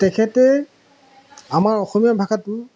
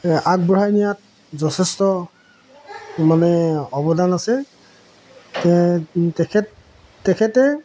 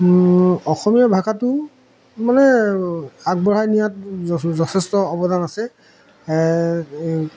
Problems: background sounds at intervals